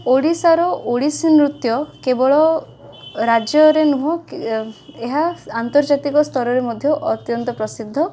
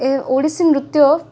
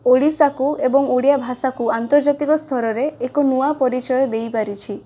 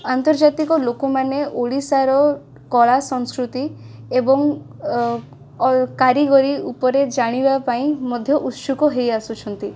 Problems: constant background noise